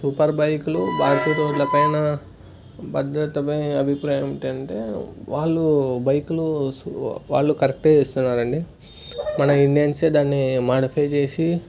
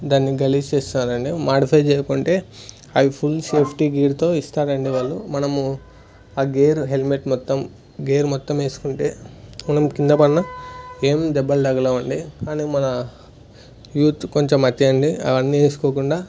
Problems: none marked